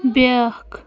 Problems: background sounds at intervals